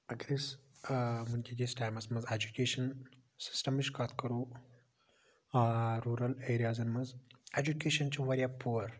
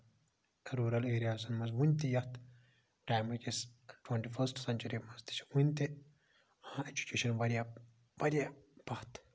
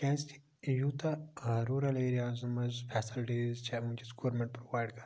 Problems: low volume